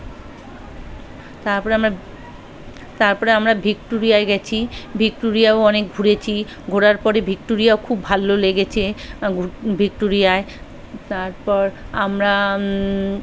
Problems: continuous background conversations